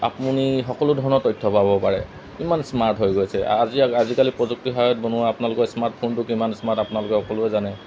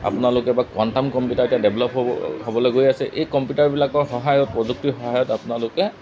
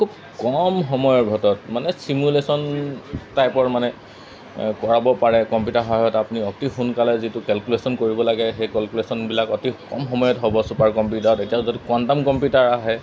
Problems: constant background noise